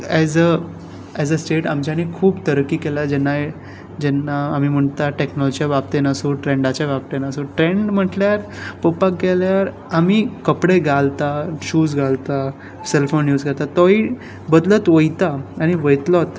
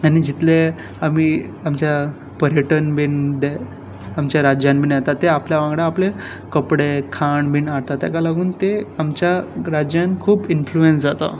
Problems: none marked